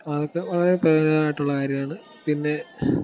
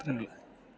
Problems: background sounds at intervals